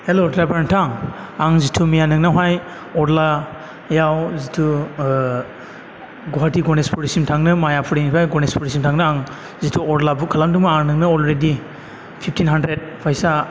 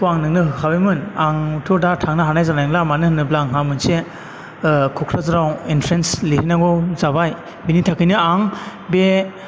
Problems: none marked